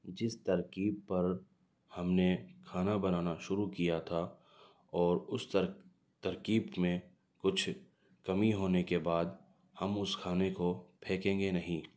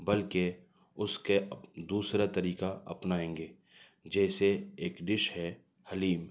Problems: none marked